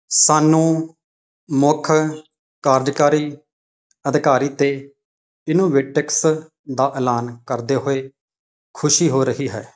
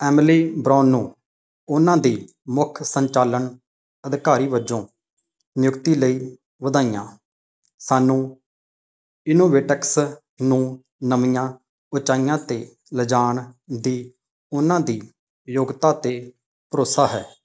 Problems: background sounds at intervals